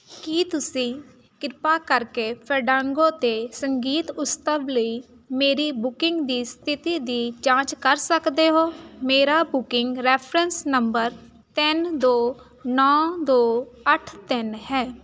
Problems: constant background noise